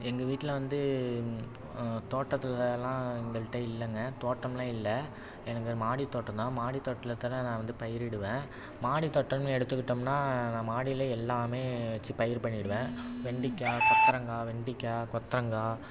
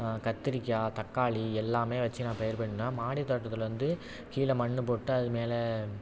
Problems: none marked